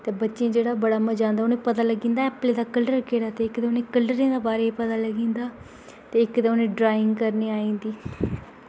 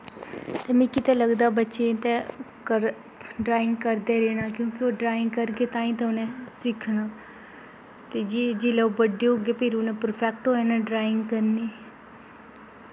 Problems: constant background noise